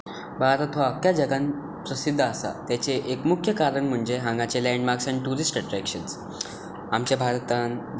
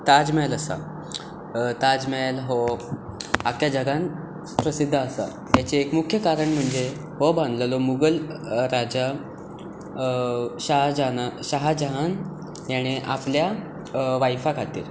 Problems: constant background noise